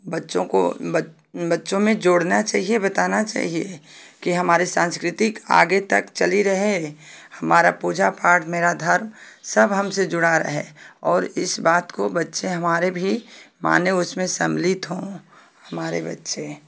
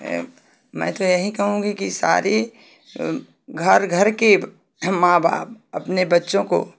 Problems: none marked